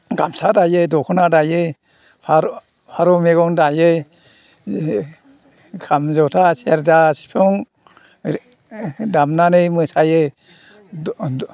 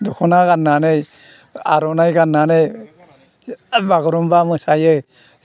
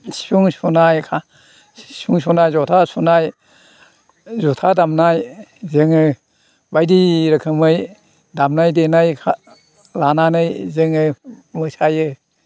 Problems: constant background noise